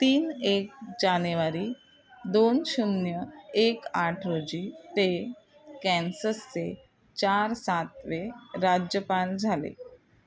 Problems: background sounds at intervals, background conversations at intervals